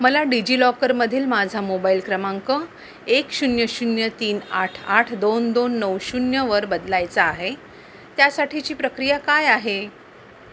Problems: none marked